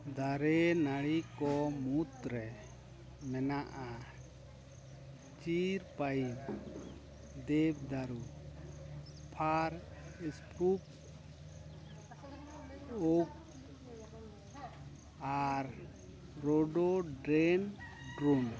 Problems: background sounds at intervals, background conversations at intervals